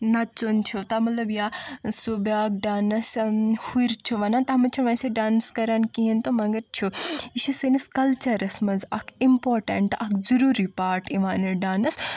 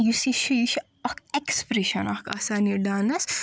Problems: none marked